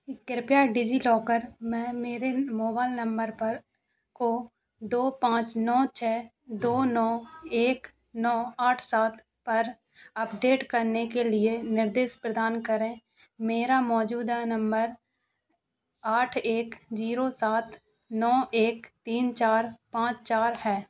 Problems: constant background noise